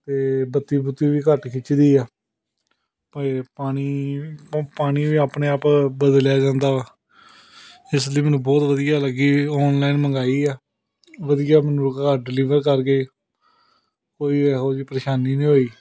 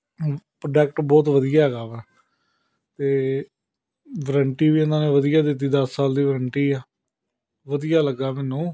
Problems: background sounds at intervals, background conversations at intervals